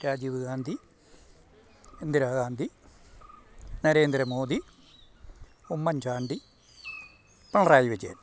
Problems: low volume